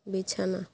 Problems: constant background noise